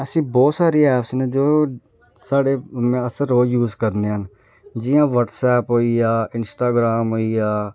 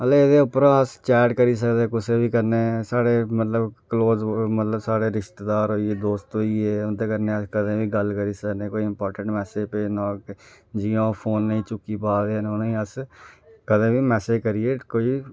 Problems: none marked